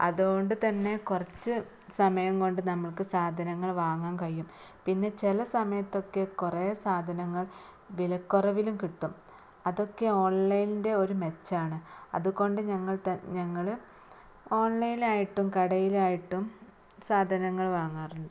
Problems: low volume